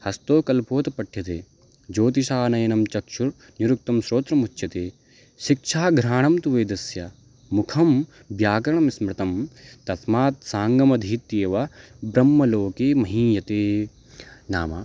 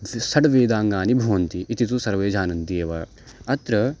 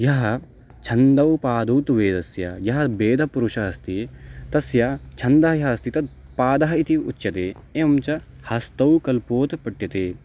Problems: background sounds at intervals